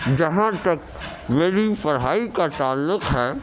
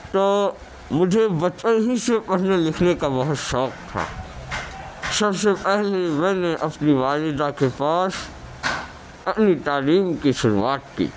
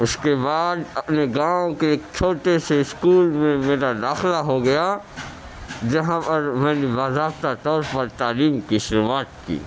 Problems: constant background noise, background conversations at intervals